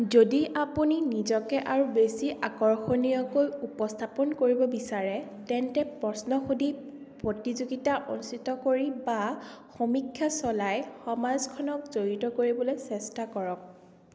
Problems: constant background noise, echo